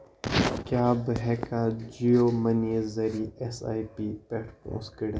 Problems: constant background noise